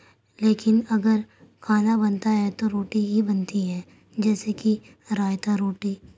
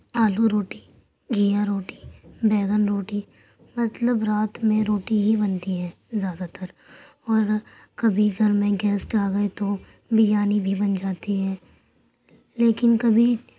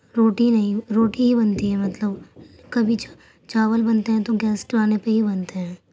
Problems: none marked